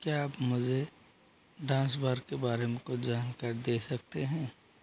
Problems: none marked